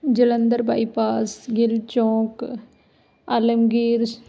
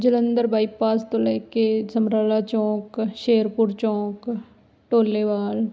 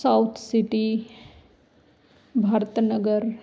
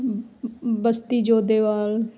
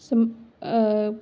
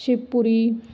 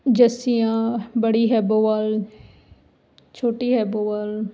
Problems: none marked